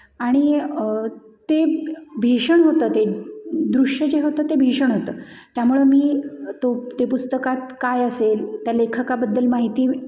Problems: constant background noise, echo